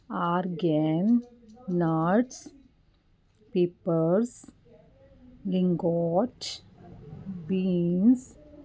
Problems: continuous background conversations